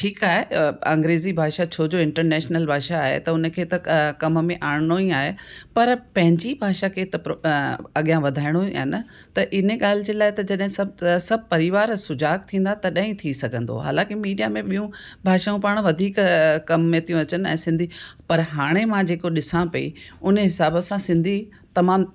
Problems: background sounds at intervals